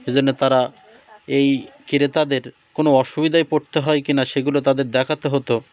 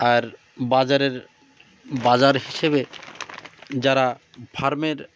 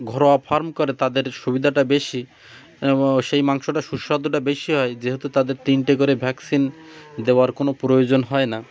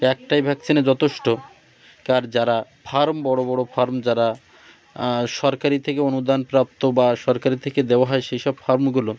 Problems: none marked